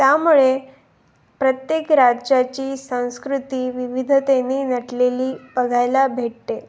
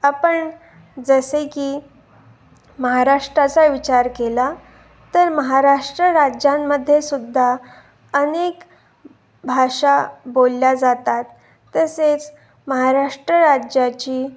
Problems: background sounds at intervals